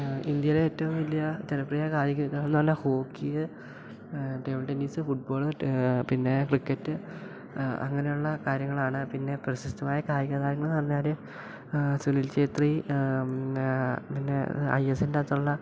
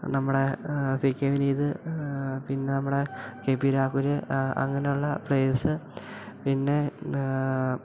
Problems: background sounds at intervals